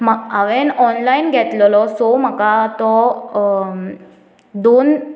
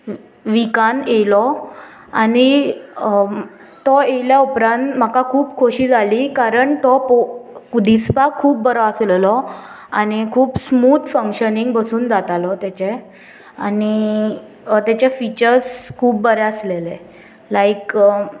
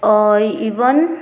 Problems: constant background noise